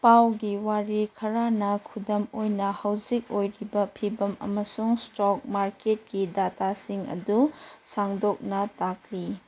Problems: background sounds at intervals